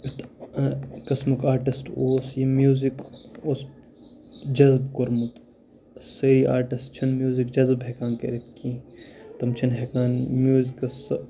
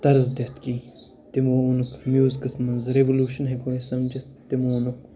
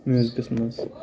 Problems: constant background noise